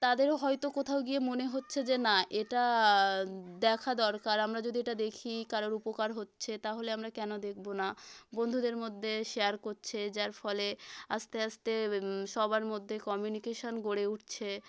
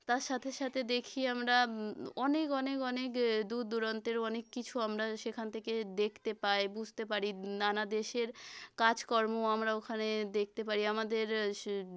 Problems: none marked